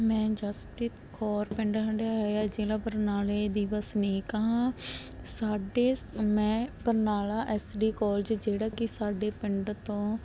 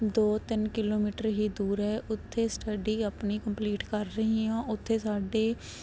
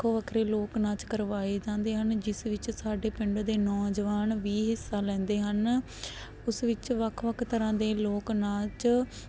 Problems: background sounds at intervals